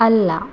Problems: constant background noise, low volume